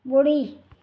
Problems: none marked